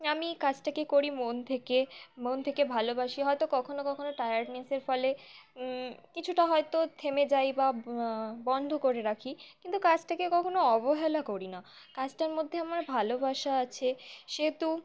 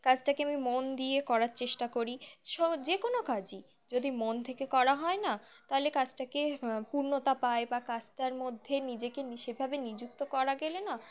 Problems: constant background noise, continuous background conversations